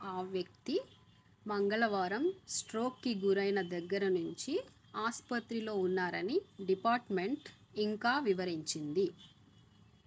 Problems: none marked